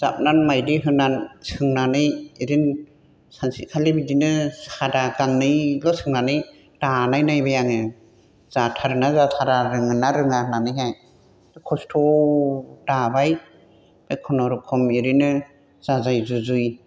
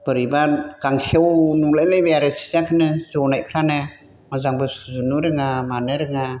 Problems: constant background noise